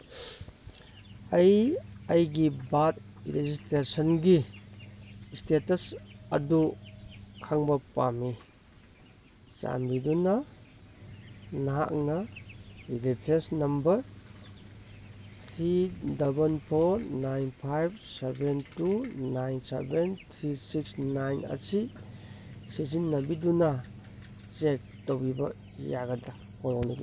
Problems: none marked